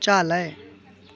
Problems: constant background noise